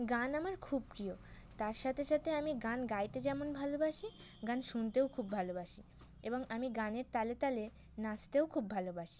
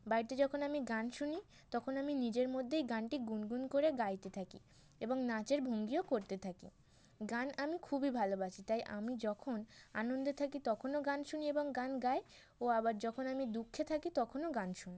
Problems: constant background noise